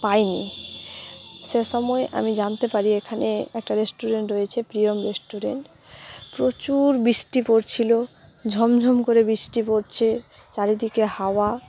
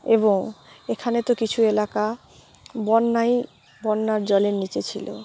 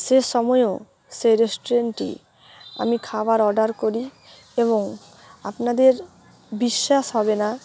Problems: background sounds at intervals